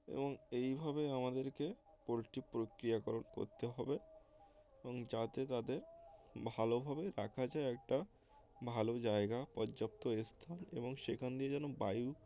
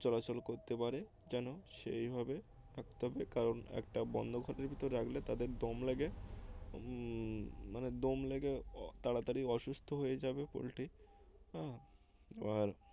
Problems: constant background noise, background conversations at intervals